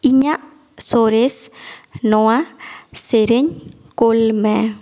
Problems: echo